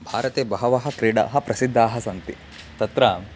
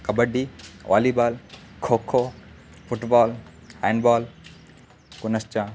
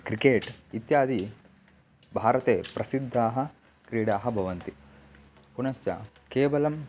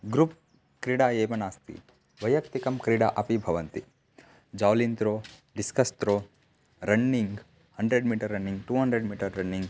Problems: none marked